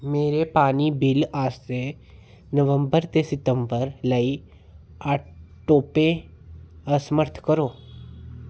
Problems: none marked